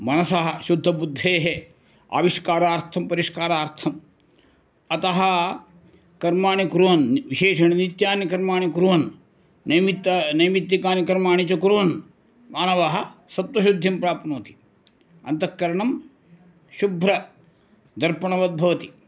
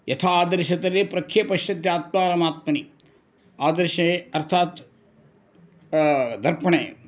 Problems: none marked